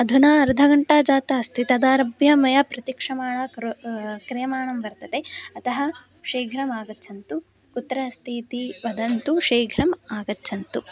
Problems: constant background noise, continuous background conversations